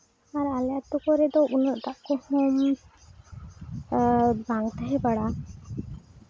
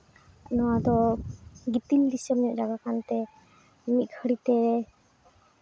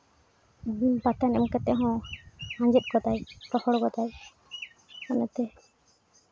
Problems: none marked